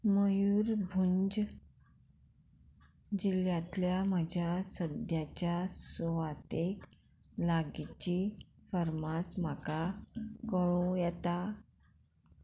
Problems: none marked